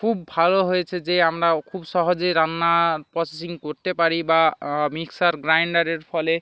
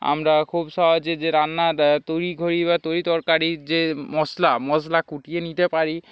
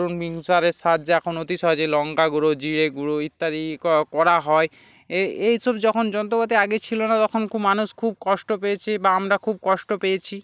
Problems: background sounds at intervals